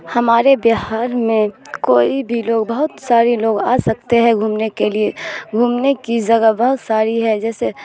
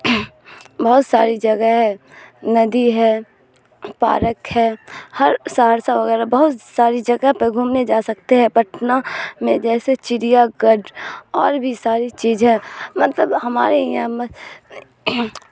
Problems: constant background noise